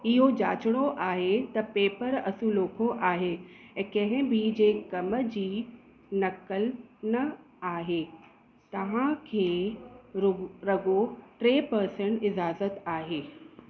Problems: constant background noise, echo